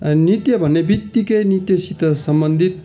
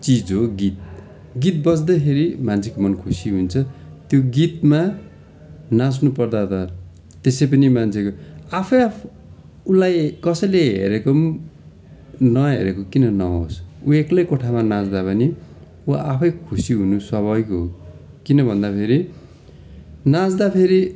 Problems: continuous background conversations